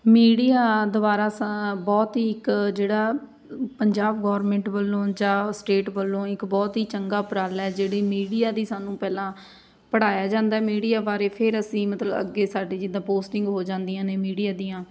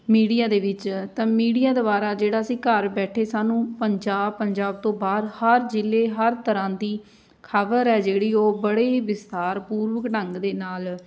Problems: background sounds at intervals, background conversations at intervals